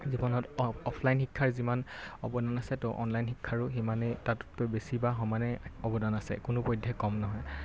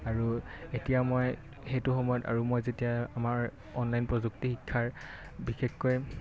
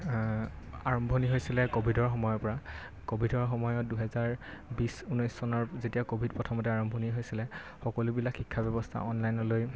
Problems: constant background noise